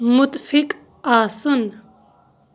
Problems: none marked